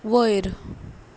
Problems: none marked